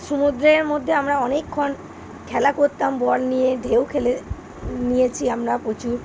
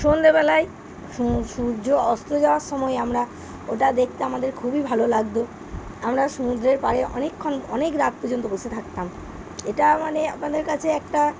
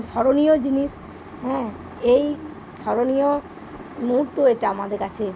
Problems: background sounds at intervals